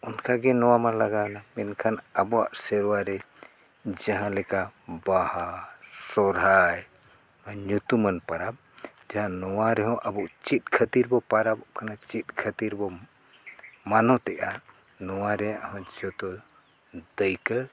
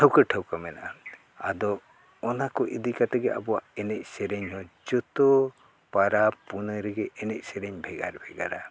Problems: background sounds at intervals